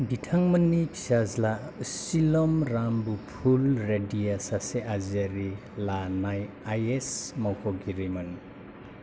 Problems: none marked